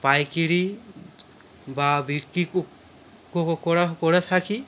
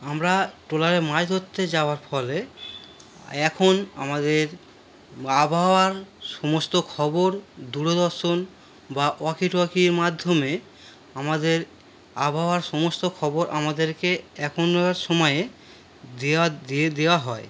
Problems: none marked